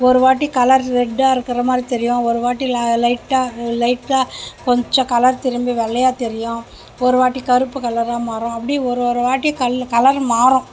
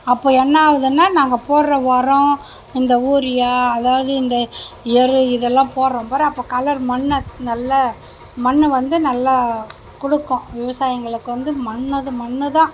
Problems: background sounds at intervals